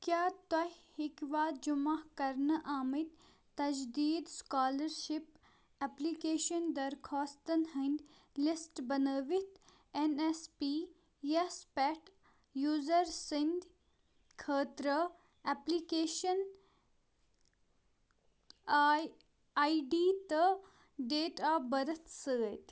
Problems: background sounds at intervals